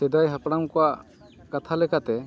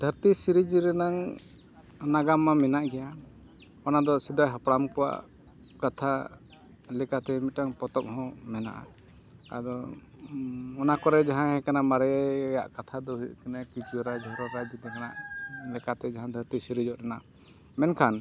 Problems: none marked